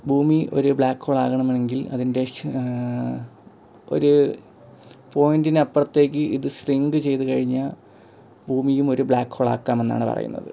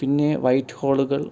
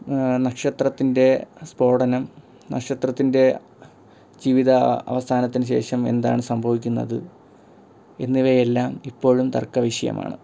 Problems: none marked